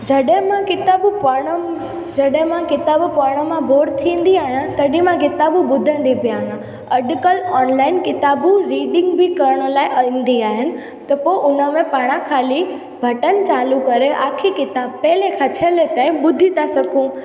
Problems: constant background noise, echo